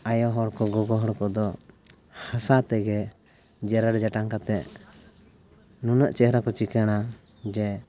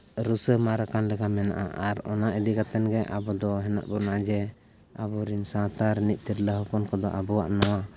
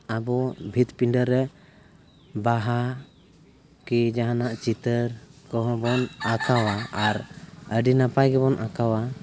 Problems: background sounds at intervals, continuous background conversations